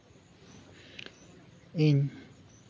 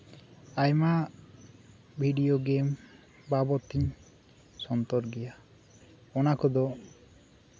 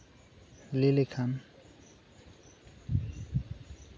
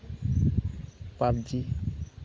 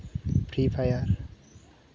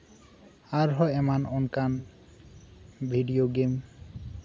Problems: constant background noise